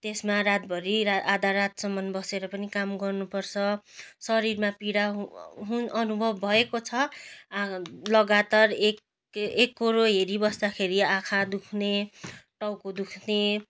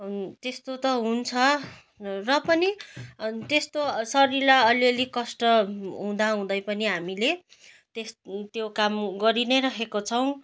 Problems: none marked